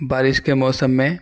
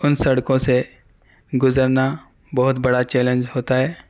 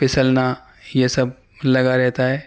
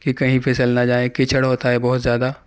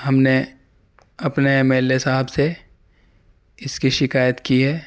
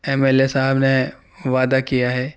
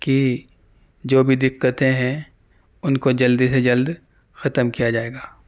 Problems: none marked